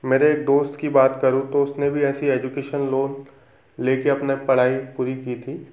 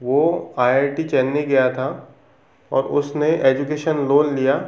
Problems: none marked